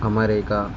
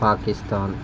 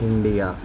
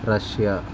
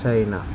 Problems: constant background noise